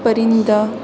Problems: none marked